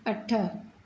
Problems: none marked